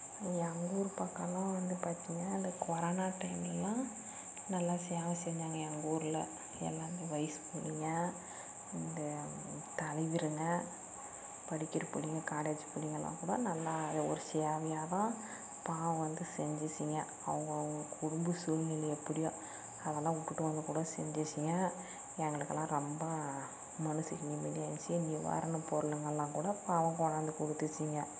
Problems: constant background noise, low volume